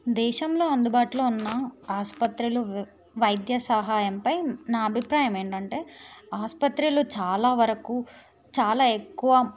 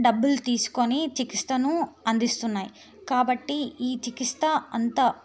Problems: none marked